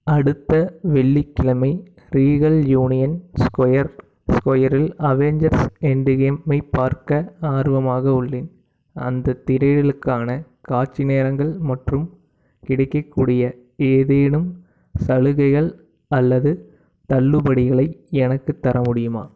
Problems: background sounds at intervals